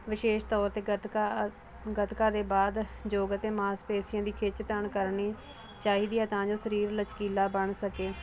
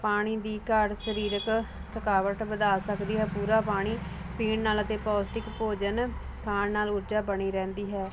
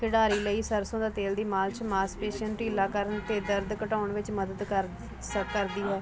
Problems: none marked